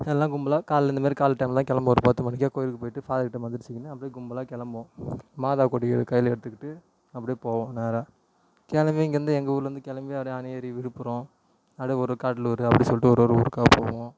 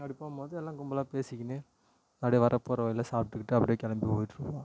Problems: constant background noise